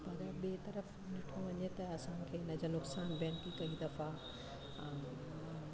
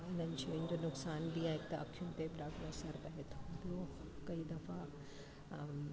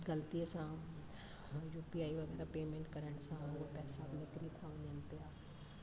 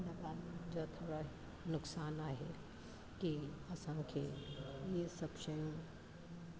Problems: constant background noise, low volume